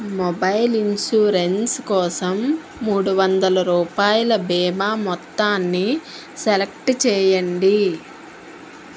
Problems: constant background noise